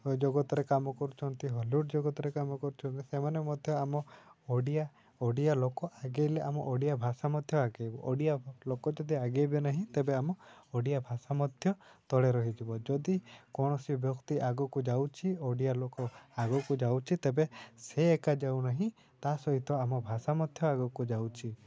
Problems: constant background noise